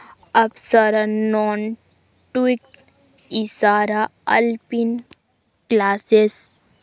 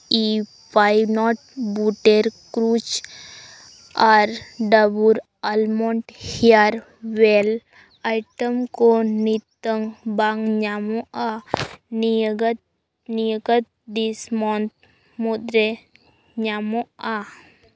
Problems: background sounds at intervals